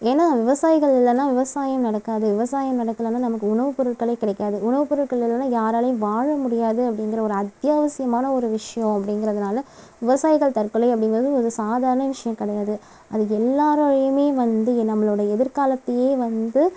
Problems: background sounds at intervals